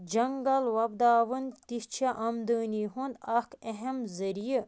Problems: constant background noise